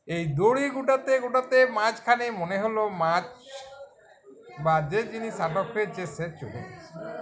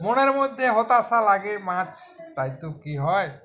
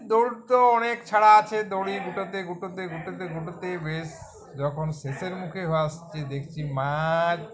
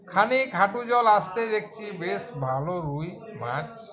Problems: continuous background conversations